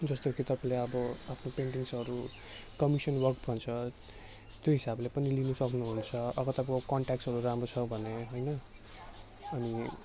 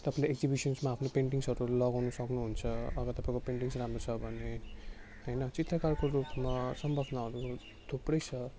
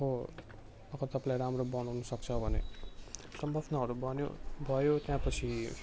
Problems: constant background noise